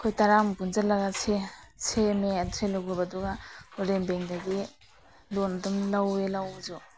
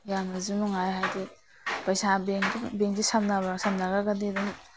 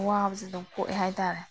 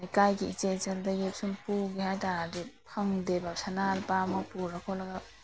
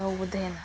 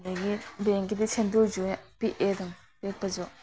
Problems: background sounds at intervals